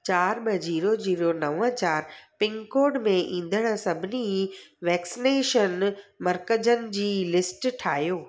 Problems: none marked